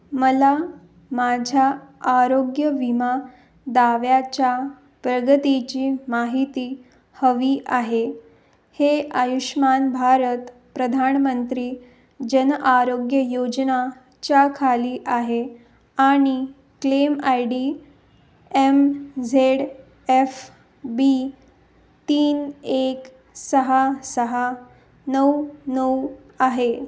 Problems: none marked